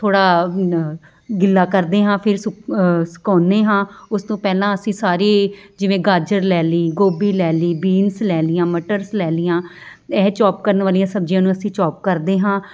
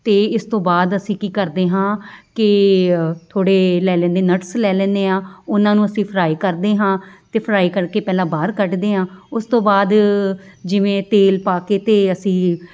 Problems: background sounds at intervals